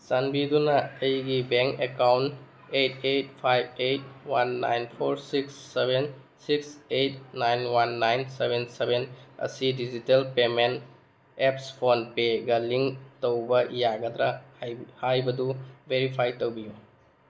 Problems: background sounds at intervals